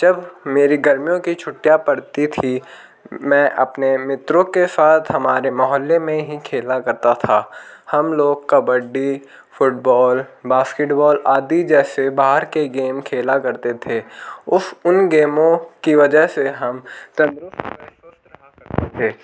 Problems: background sounds at intervals